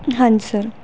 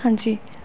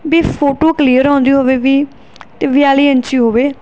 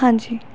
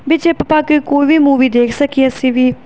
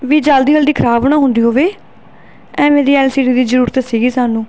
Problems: none marked